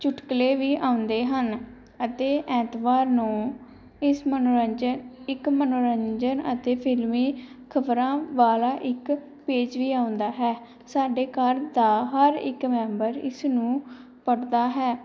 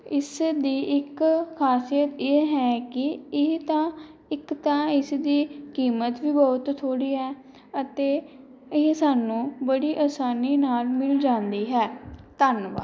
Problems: background sounds at intervals